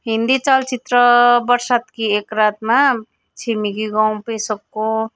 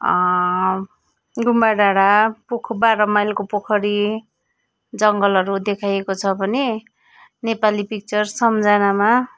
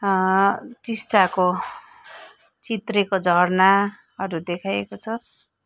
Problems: background sounds at intervals